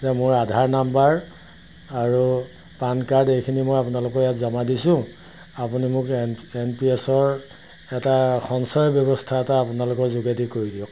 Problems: background sounds at intervals